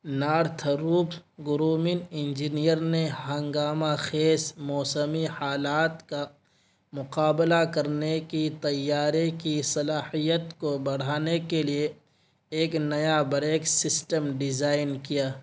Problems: constant background noise